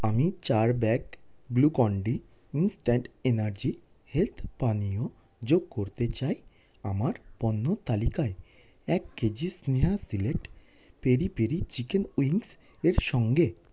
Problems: none marked